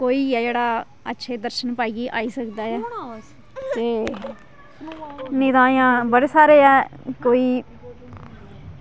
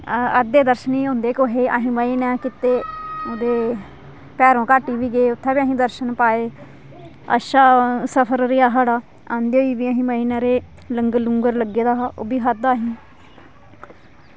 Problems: none marked